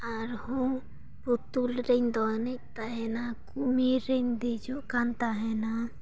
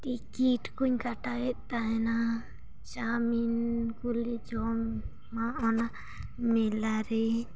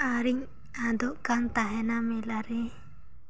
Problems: none marked